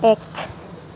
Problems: constant background noise